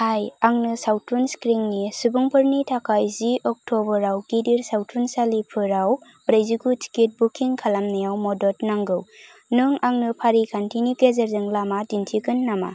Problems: constant background noise